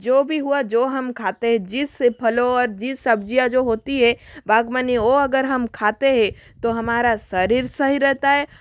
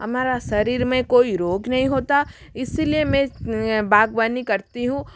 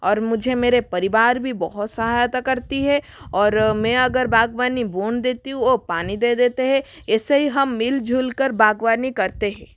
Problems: constant background noise